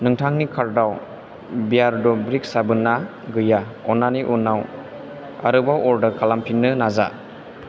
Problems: constant background noise